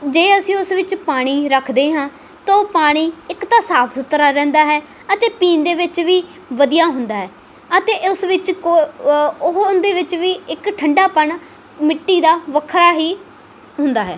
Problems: background sounds at intervals